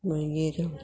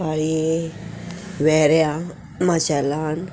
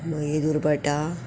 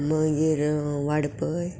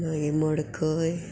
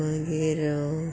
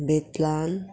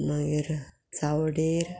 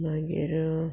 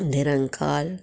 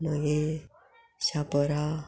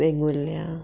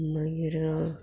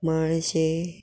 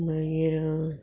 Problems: background sounds at intervals, background conversations at intervals